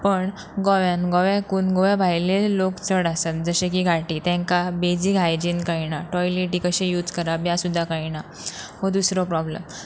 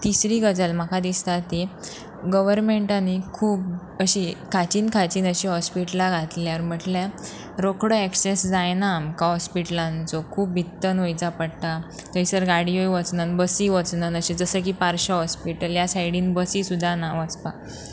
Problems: background sounds at intervals